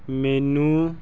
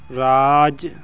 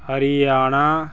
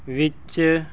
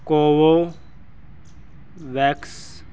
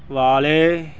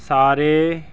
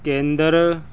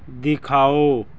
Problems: none marked